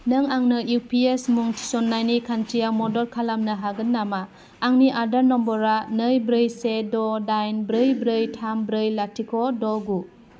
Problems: none marked